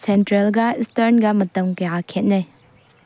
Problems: low volume